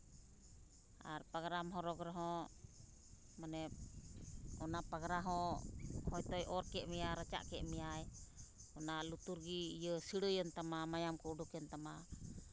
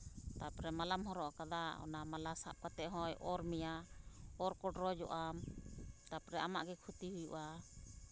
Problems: constant background noise